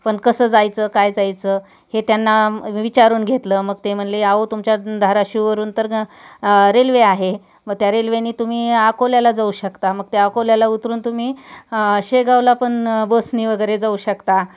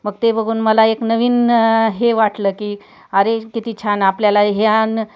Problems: background sounds at intervals